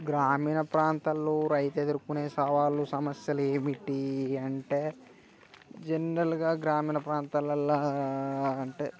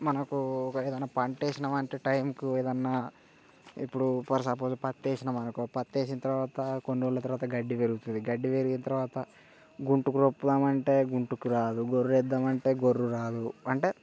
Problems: none marked